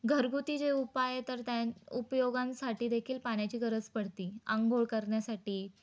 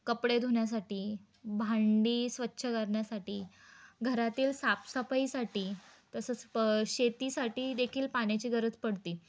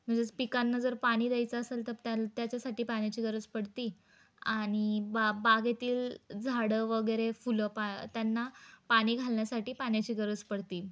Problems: none marked